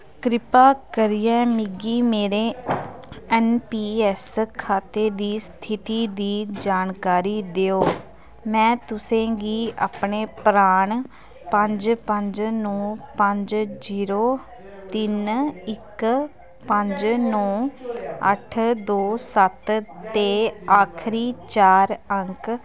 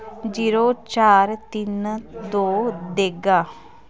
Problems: constant background noise